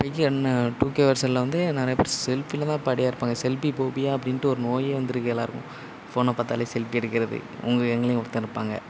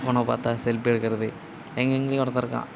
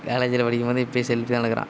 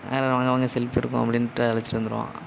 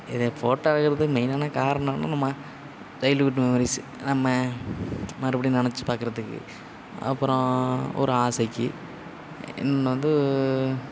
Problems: constant background noise